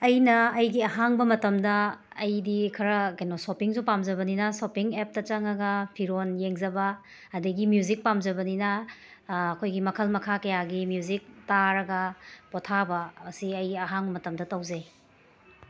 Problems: background sounds at intervals